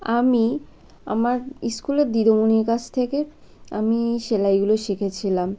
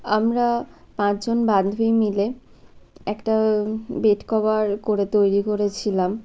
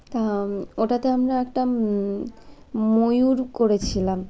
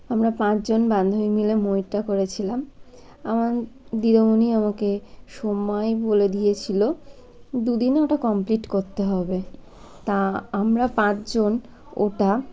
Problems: constant background noise